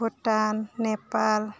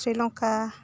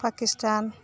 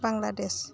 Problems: constant background noise